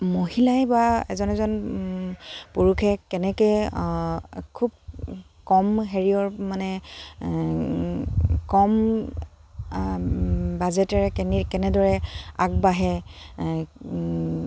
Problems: constant background noise, background conversations at intervals